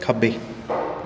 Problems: none marked